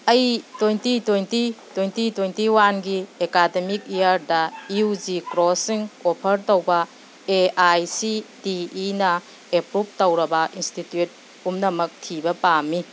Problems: background sounds at intervals